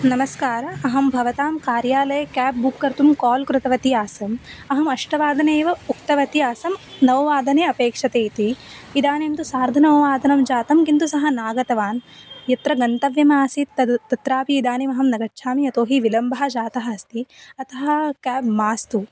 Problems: constant background noise